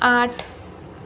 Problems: constant background noise